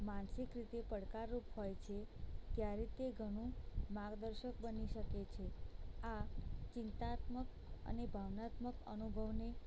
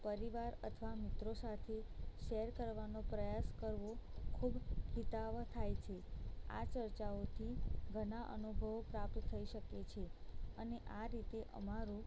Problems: low volume